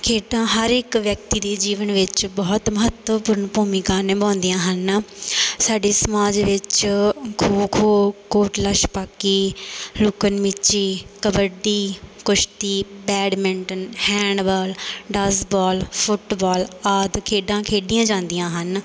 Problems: constant background noise